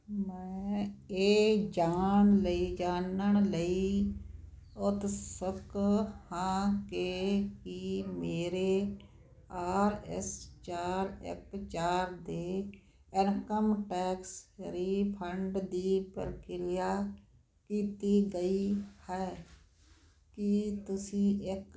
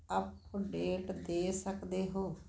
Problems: constant background noise